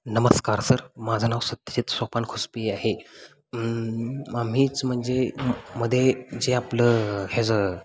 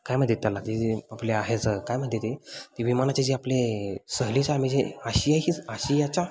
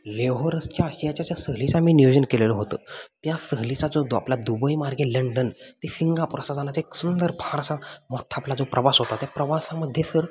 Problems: constant background noise